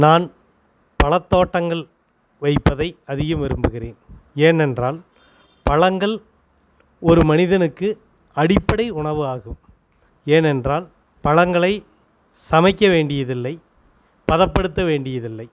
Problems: constant background noise